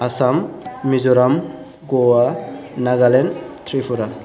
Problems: background conversations at intervals